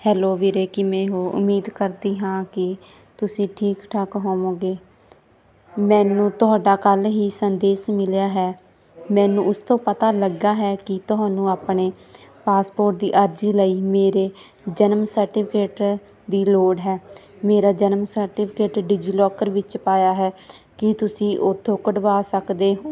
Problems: background conversations at intervals